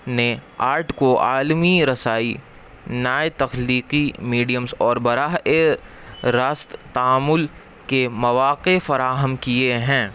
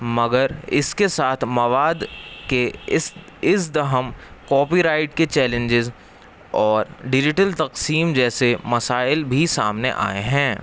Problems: constant background noise